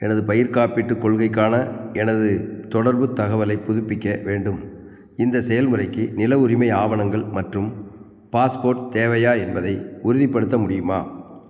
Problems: none marked